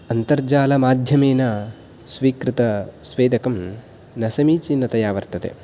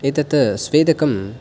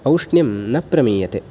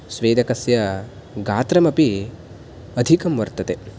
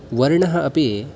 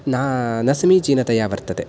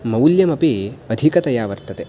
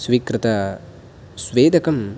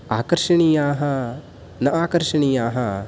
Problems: background sounds at intervals